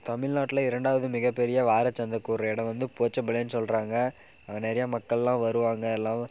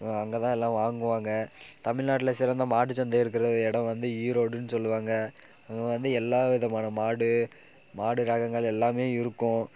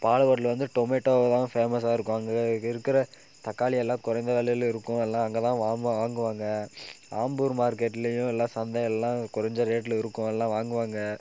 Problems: background sounds at intervals